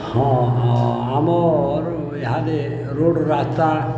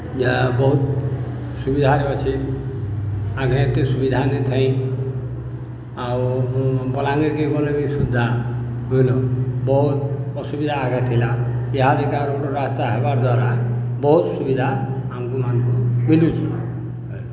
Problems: none marked